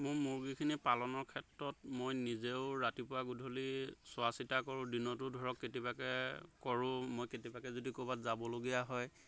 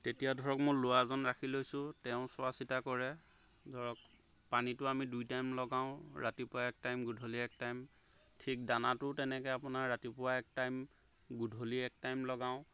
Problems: constant background noise